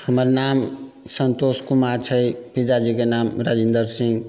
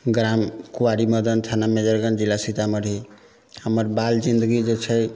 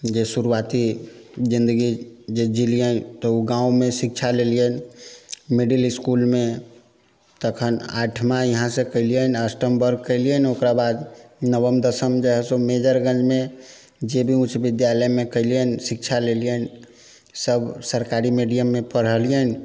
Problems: background sounds at intervals